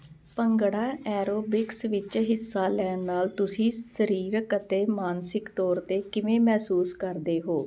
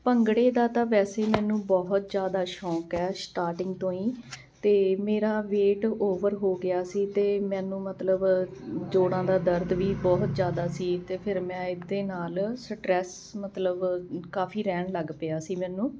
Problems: none marked